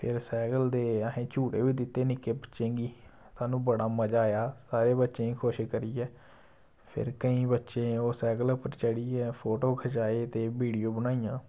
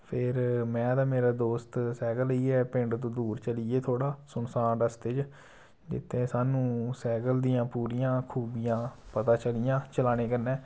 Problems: none marked